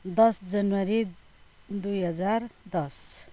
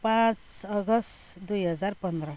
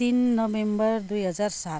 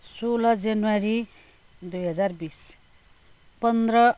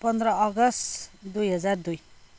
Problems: background sounds at intervals